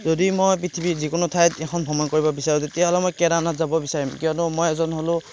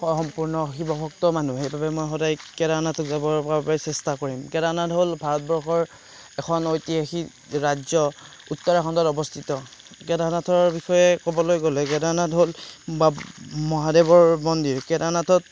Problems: background sounds at intervals, background conversations at intervals